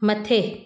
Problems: none marked